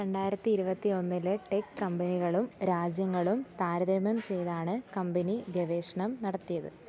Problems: low volume